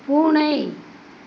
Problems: constant background noise